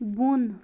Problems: constant background noise, low volume